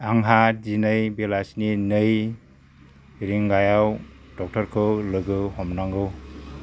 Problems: constant background noise